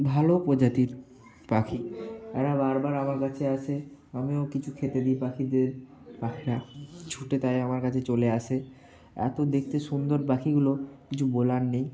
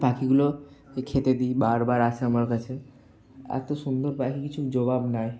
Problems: none marked